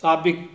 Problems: none marked